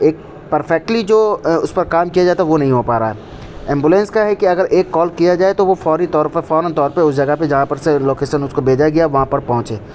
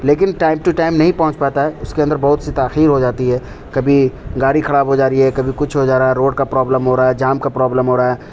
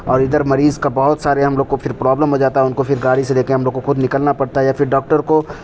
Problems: constant background noise